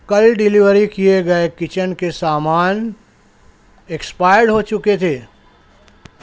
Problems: none marked